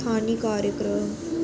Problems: constant background noise